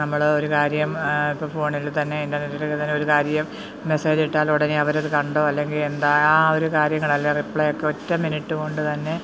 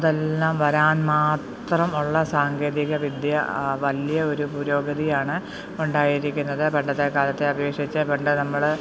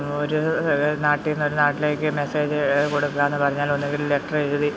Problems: background sounds at intervals